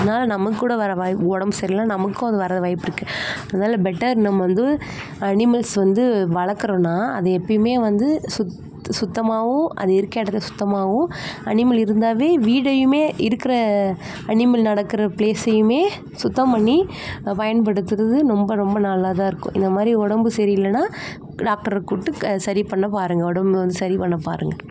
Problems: constant background noise